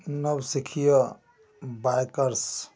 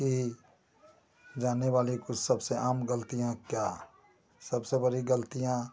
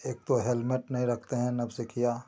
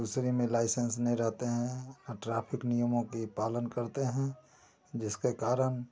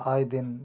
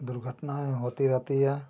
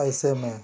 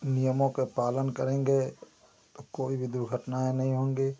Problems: constant background noise